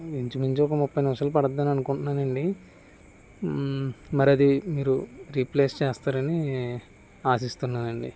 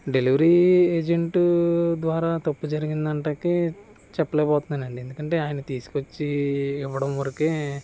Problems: constant background noise, background conversations at intervals